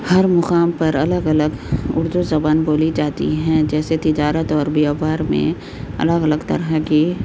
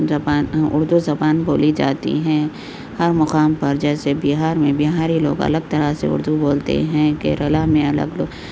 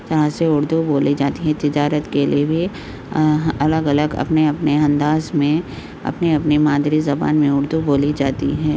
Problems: constant background noise, low volume